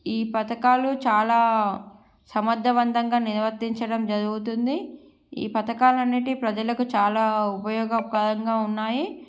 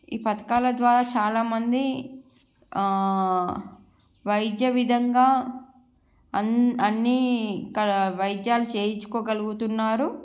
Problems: background sounds at intervals